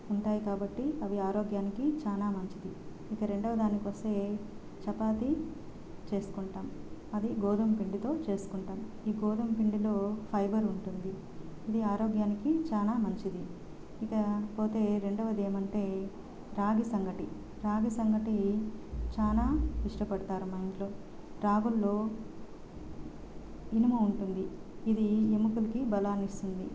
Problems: constant background noise